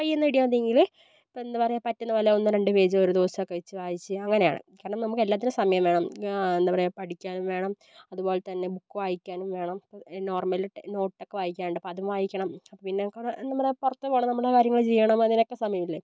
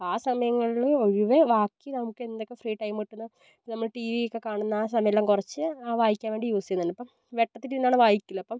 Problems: none marked